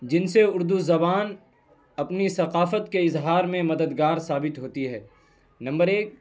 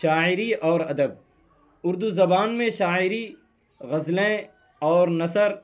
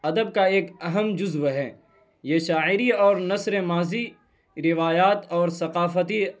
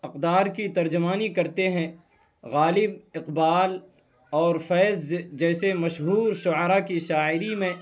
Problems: none marked